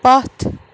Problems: constant background noise